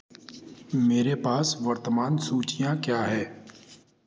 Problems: constant background noise